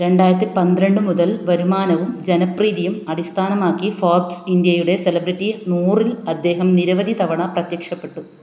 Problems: none marked